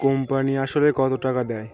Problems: continuous background conversations